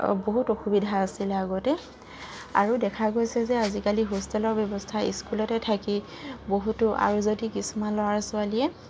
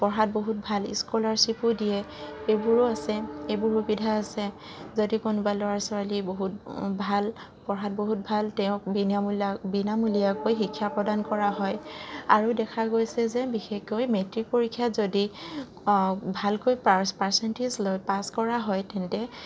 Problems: constant background noise